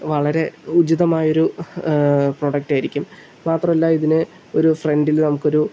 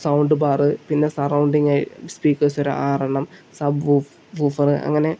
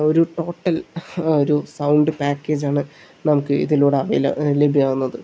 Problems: none marked